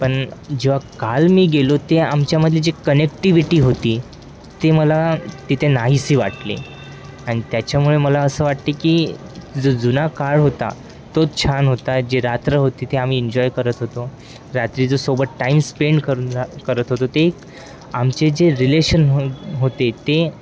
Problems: constant background noise, continuous background conversations